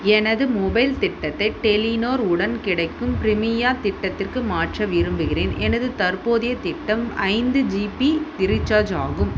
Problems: constant background noise